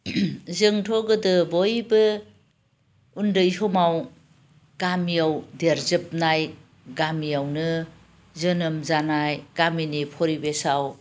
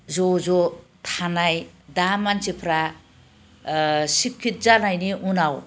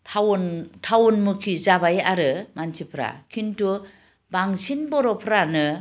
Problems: constant background noise